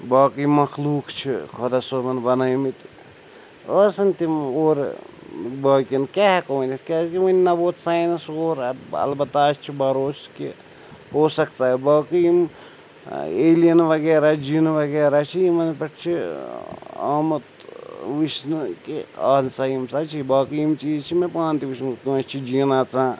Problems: constant background noise